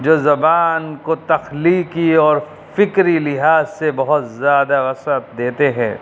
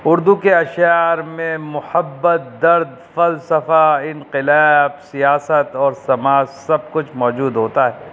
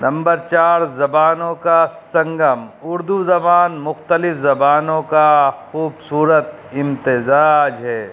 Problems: constant background noise